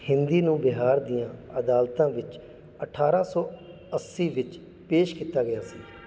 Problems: background sounds at intervals